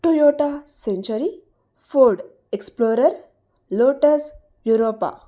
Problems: none marked